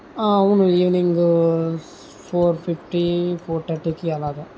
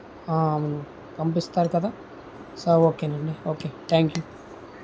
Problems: none marked